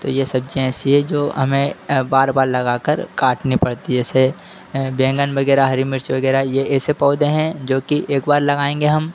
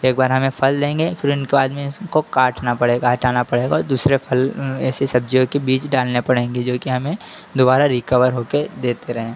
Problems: constant background noise